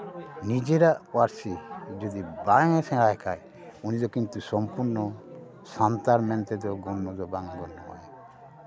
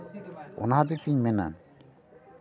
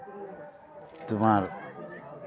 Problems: constant background noise, continuous background conversations